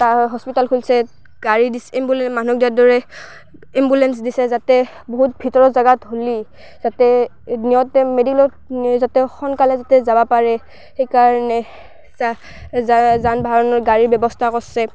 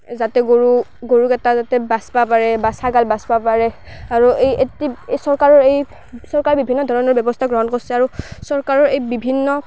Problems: background sounds at intervals, background conversations at intervals